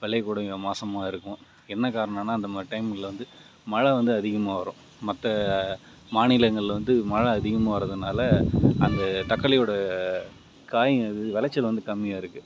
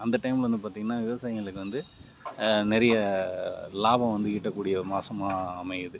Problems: none marked